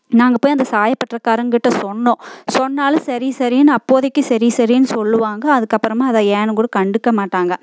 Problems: constant background noise